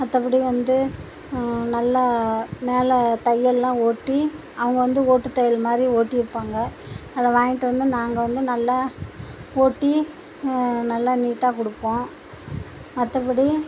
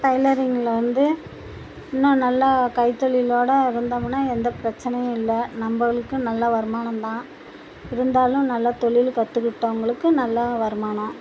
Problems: constant background noise